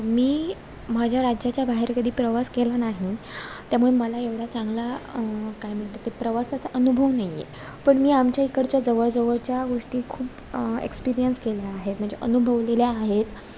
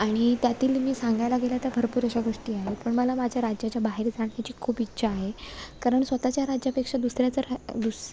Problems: background sounds at intervals, background conversations at intervals